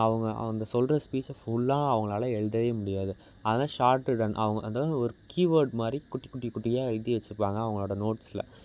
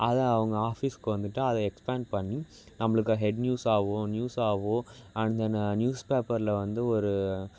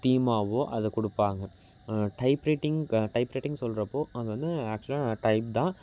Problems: background sounds at intervals